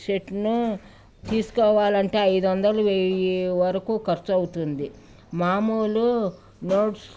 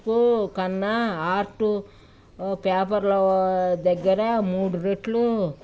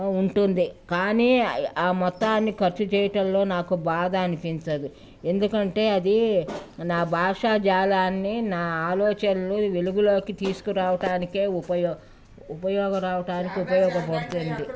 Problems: none marked